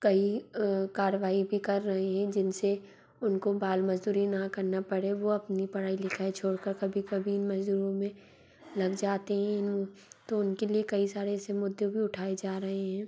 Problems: constant background noise